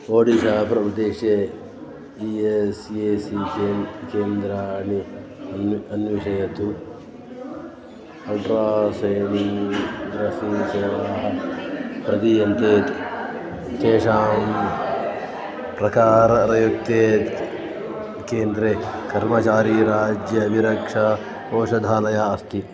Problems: constant background noise, continuous background conversations